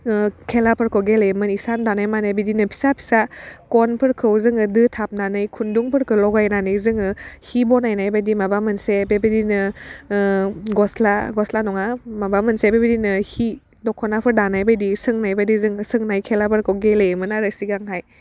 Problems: none marked